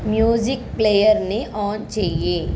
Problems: background sounds at intervals